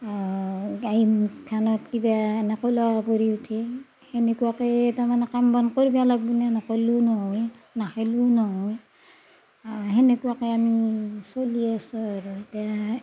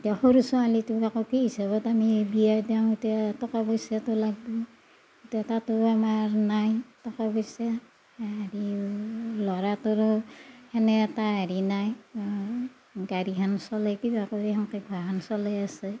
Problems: none marked